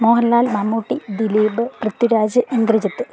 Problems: background sounds at intervals